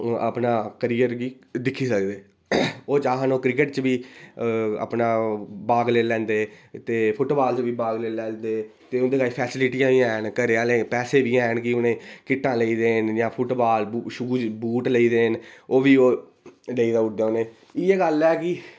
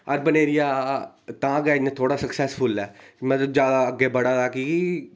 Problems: background sounds at intervals